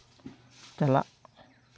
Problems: none marked